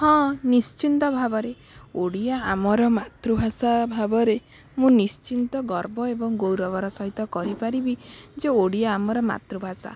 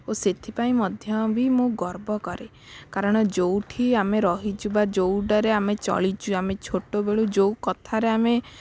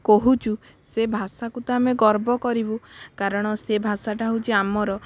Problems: background sounds at intervals